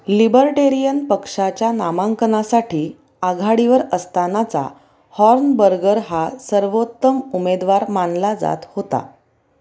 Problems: none marked